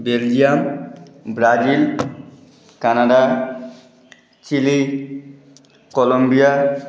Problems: constant background noise